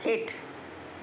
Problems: background sounds at intervals